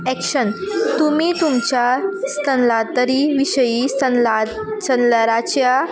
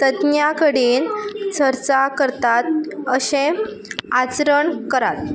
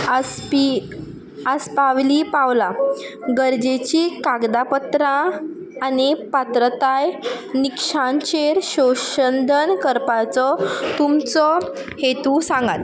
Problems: background sounds at intervals